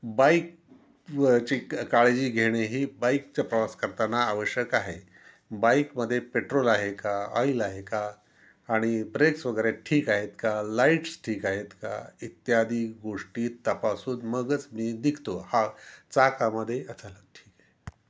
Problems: background sounds at intervals